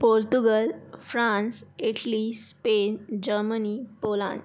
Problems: background sounds at intervals